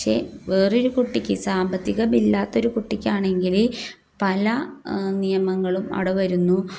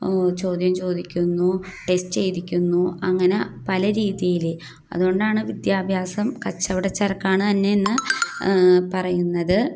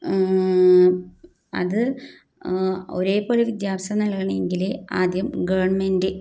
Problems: none marked